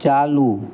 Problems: constant background noise